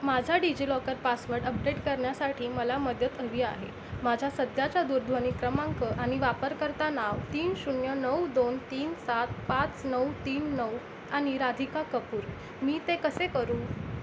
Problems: constant background noise